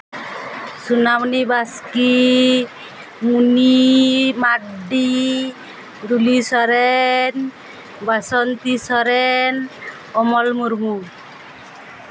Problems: constant background noise